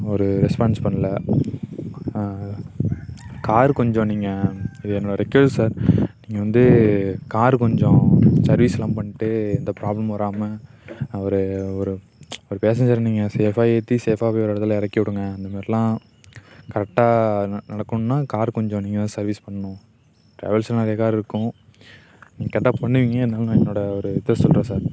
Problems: constant background noise